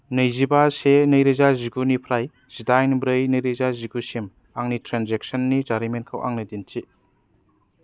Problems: none marked